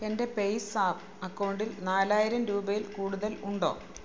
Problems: background sounds at intervals